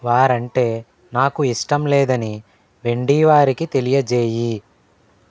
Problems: none marked